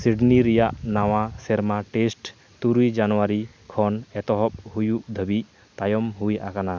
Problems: none marked